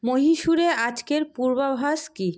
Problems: constant background noise